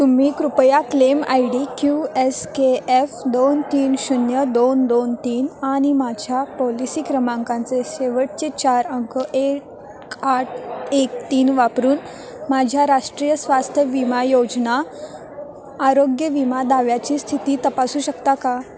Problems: constant background noise, continuous background conversations